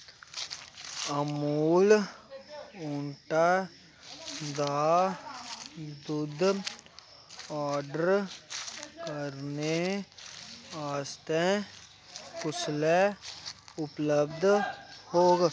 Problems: constant background noise